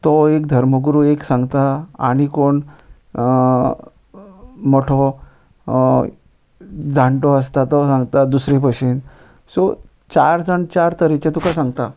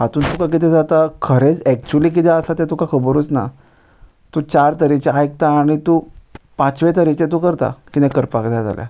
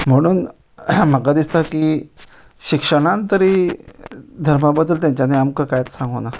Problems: none marked